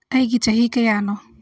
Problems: none marked